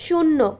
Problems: continuous background conversations